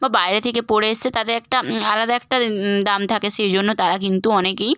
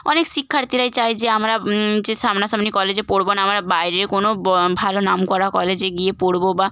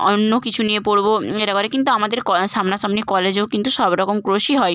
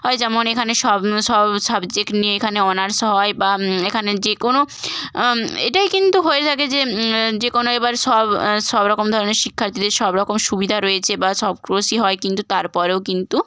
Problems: constant background noise